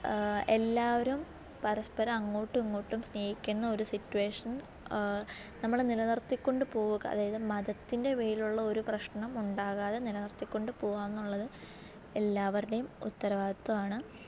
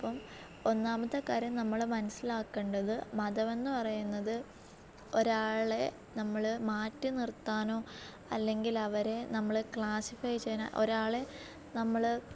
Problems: low volume